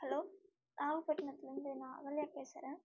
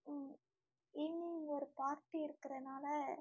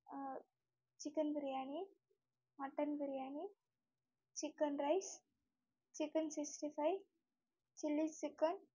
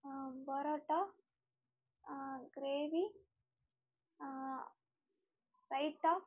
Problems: low volume